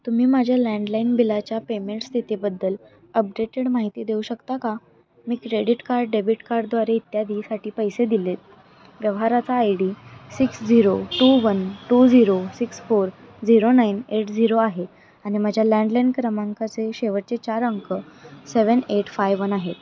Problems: constant background noise, continuous background conversations